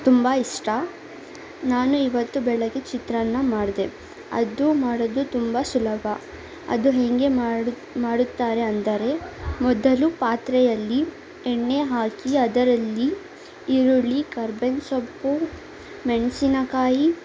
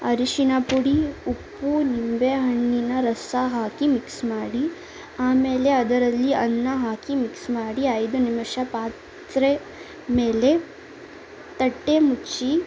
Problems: none marked